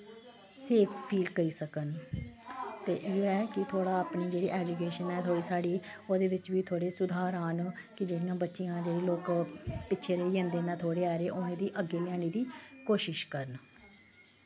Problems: none marked